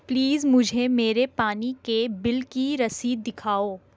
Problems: constant background noise